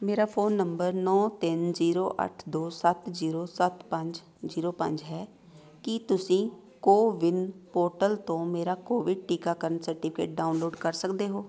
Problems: continuous background conversations